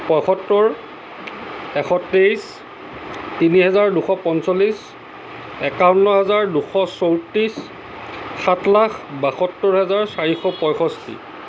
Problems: background sounds at intervals